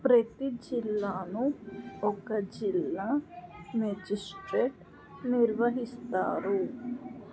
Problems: none marked